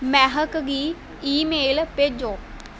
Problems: constant background noise